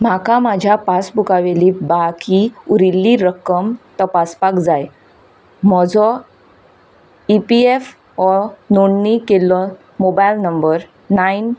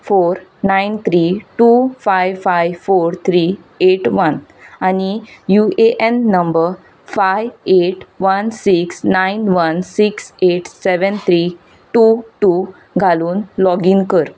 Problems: none marked